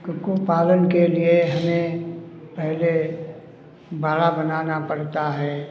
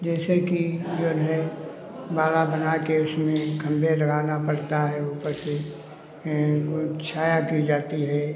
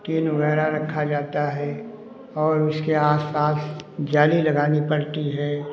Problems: none marked